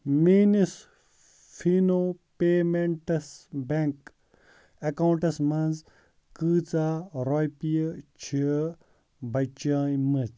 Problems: none marked